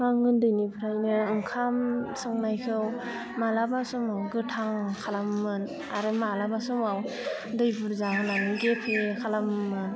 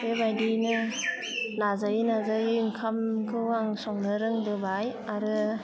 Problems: constant background noise